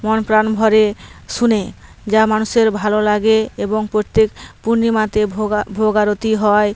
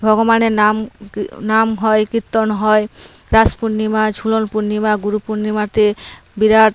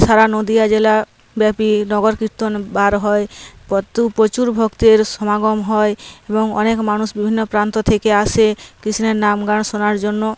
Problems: none marked